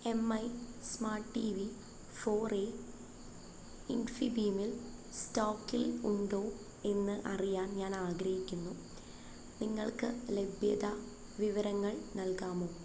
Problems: constant background noise